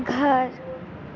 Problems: constant background noise